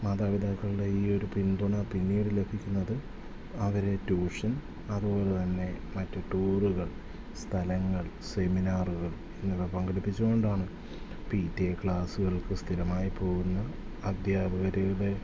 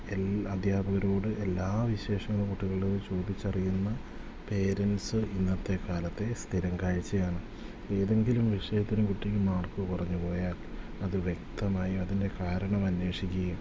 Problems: constant background noise